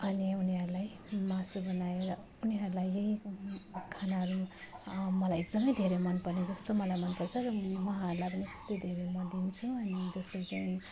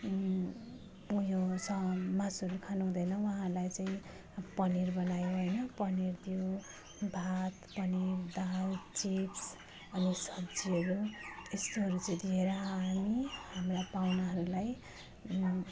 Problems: background sounds at intervals